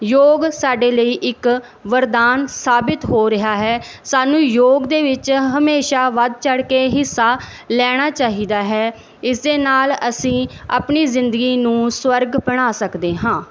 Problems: background sounds at intervals